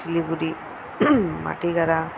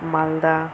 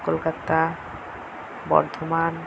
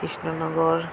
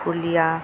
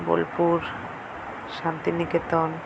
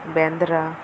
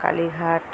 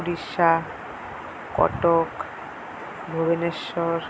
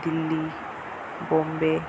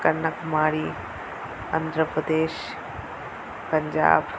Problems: constant background noise